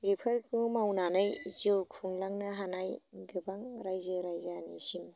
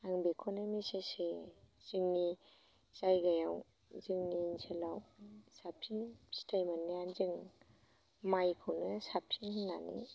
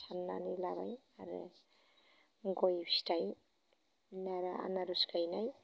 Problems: constant background noise